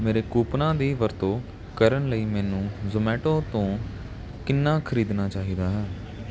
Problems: constant background noise